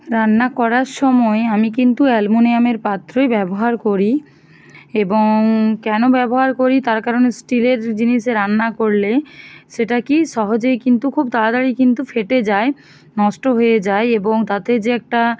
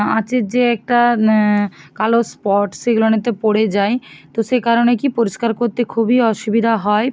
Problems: none marked